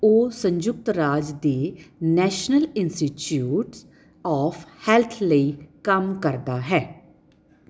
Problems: background sounds at intervals